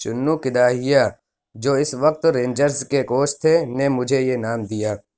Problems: background sounds at intervals